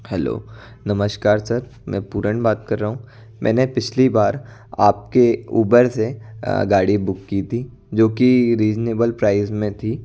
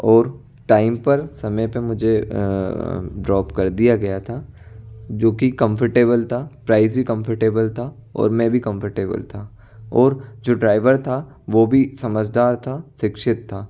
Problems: constant background noise